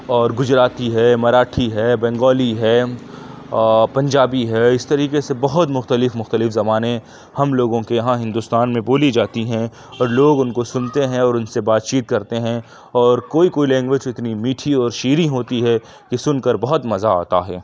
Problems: none marked